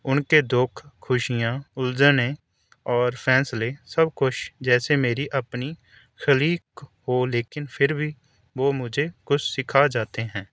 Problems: none marked